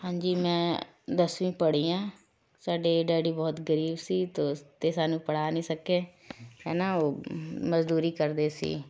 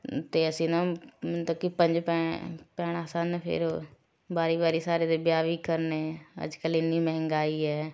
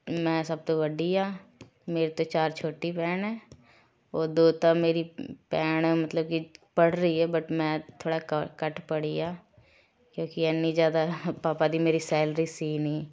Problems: background sounds at intervals, continuous background conversations